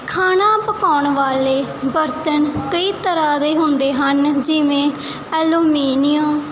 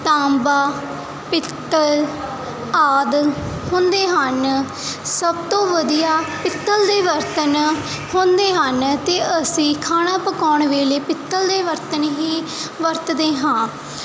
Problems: none marked